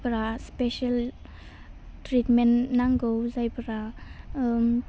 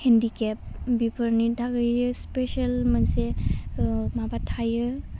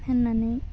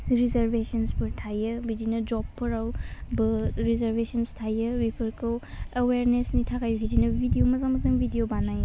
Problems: low volume